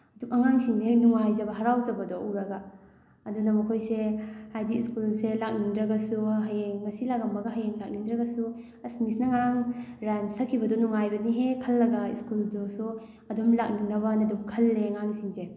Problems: background sounds at intervals